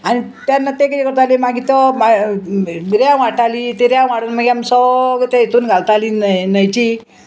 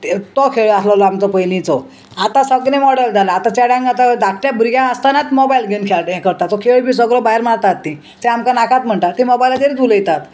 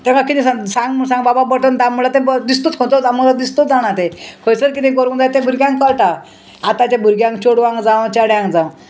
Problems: constant background noise